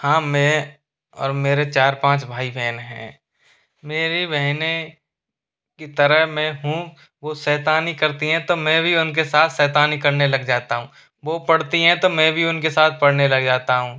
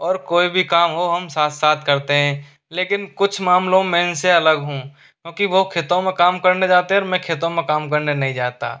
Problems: constant background noise